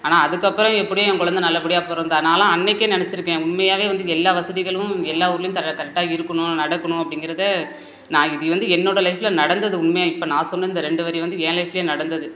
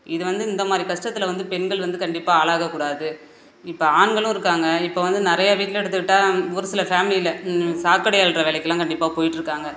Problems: background sounds at intervals